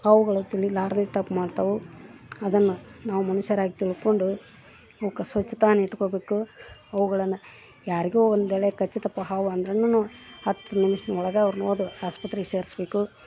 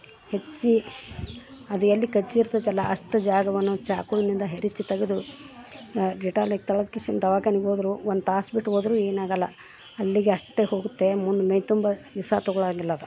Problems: background sounds at intervals